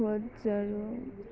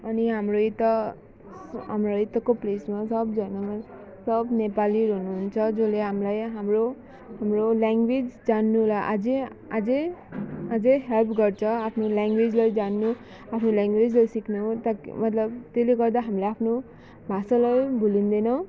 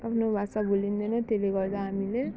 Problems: constant background noise